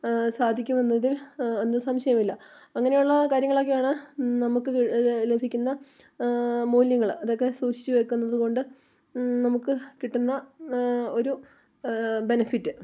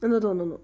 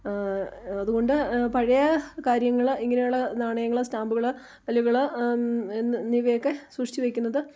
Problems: background sounds at intervals